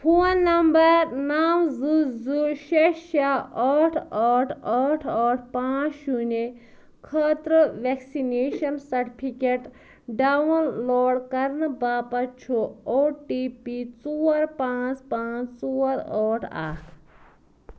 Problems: none marked